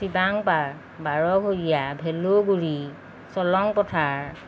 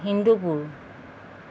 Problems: none marked